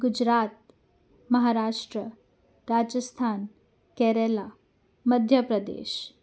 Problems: none marked